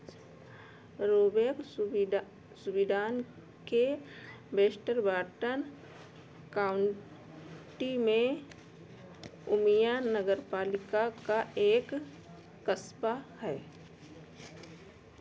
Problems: constant background noise